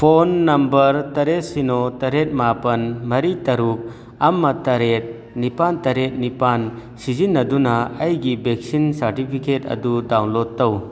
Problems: none marked